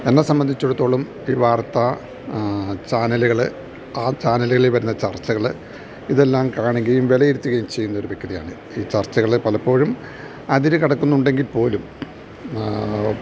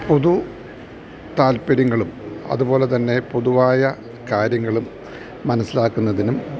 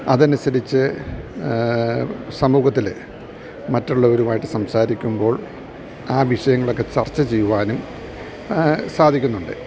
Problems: background sounds at intervals